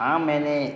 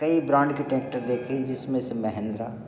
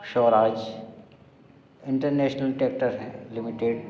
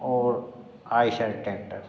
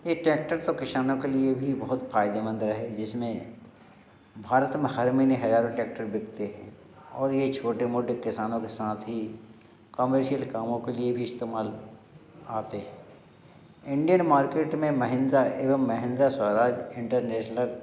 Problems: constant background noise, background conversations at intervals